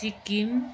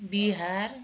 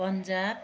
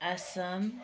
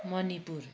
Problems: background sounds at intervals